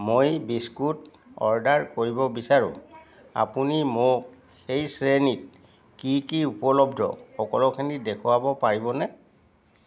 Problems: background sounds at intervals, background conversations at intervals